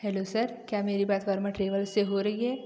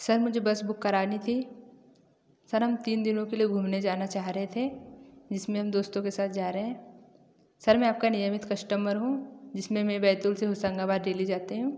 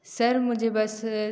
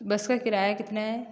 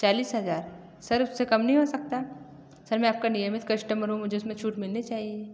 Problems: echo